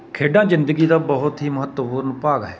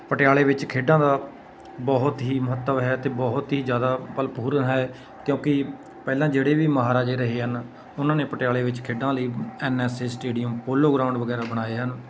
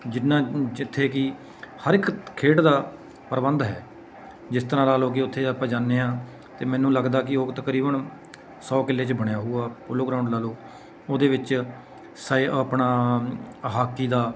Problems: constant background noise